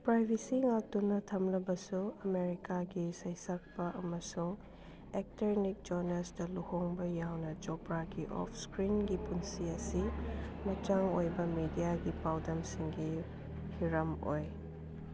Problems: background sounds at intervals